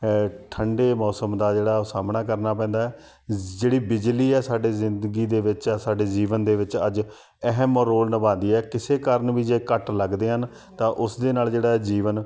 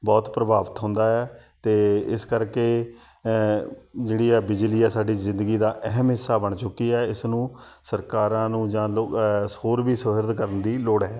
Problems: background sounds at intervals